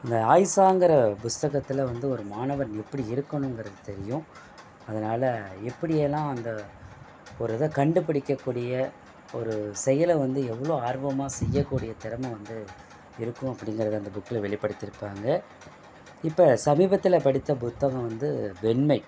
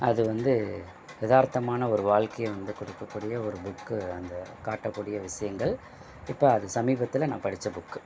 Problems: background sounds at intervals